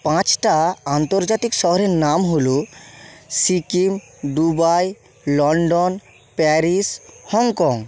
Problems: constant background noise